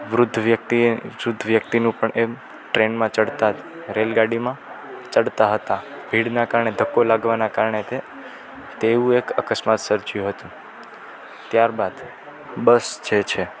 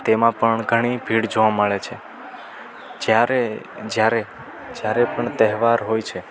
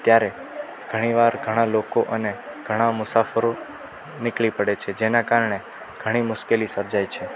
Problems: constant background noise